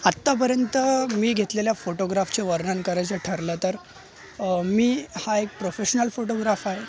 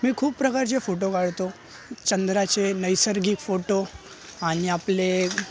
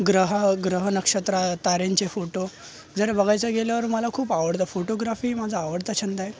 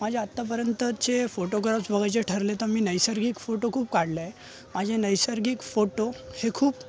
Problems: none marked